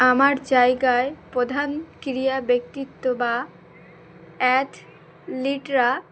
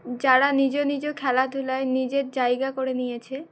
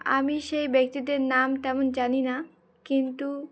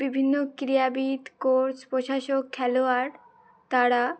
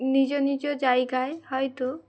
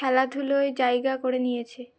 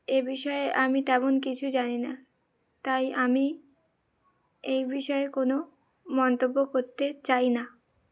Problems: background sounds at intervals